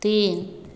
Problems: constant background noise, echo